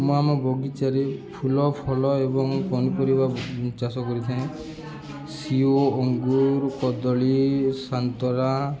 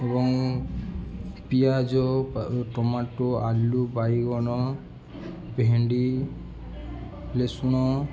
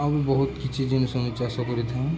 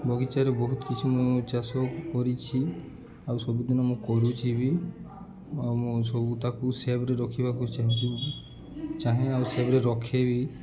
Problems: constant background noise, continuous background conversations